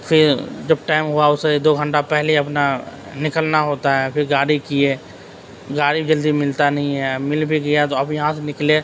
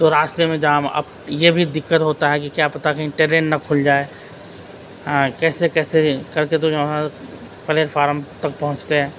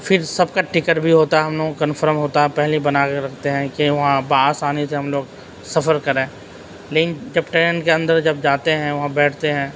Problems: constant background noise